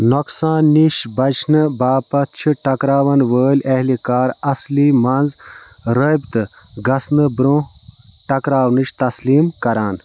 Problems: background sounds at intervals